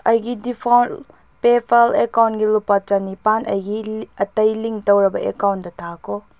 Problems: none marked